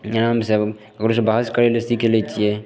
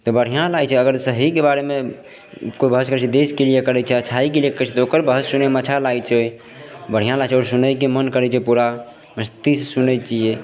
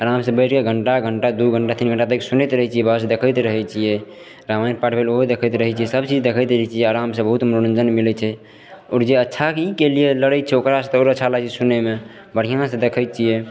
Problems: none marked